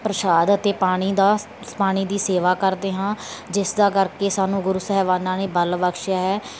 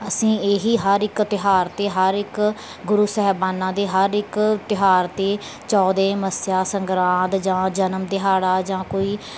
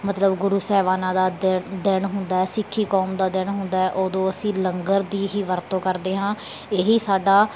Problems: none marked